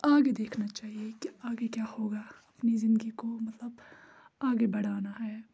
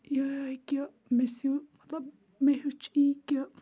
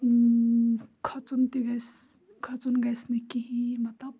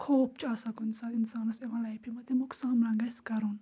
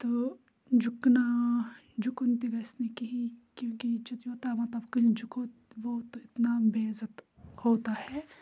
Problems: background sounds at intervals